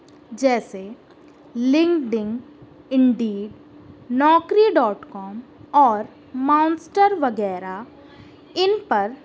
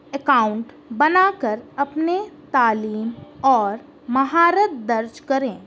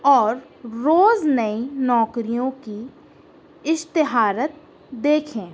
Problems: constant background noise